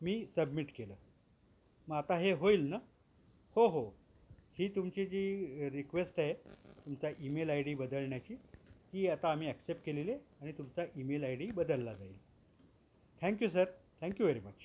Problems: background sounds at intervals